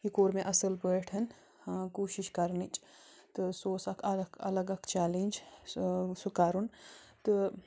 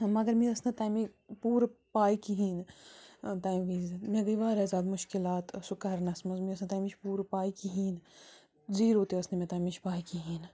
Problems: constant background noise